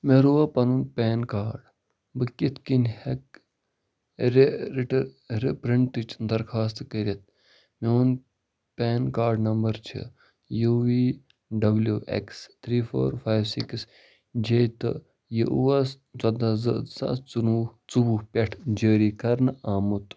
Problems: low volume